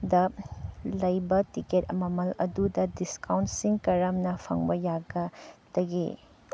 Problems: background sounds at intervals